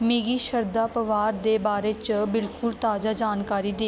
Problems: background sounds at intervals